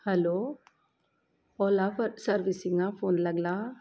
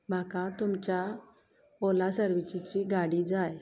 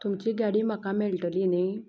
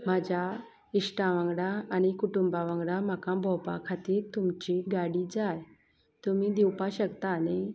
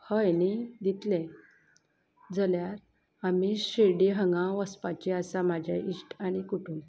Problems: constant background noise